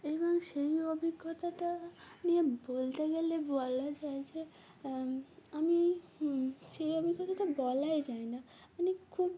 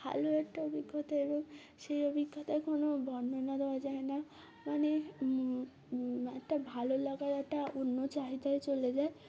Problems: background sounds at intervals, background conversations at intervals